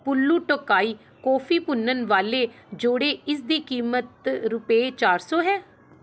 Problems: background sounds at intervals